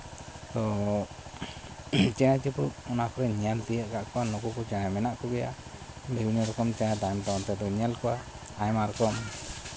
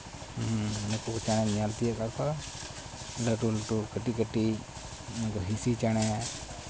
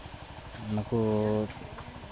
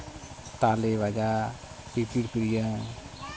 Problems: constant background noise, background conversations at intervals